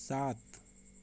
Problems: none marked